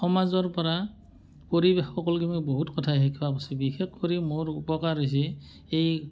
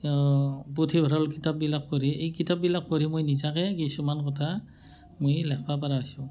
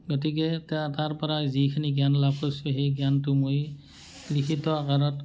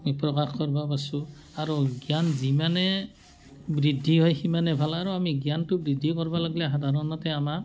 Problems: none marked